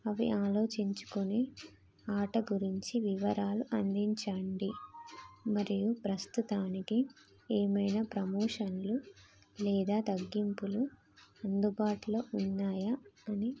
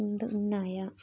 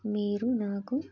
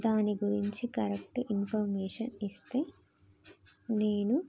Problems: constant background noise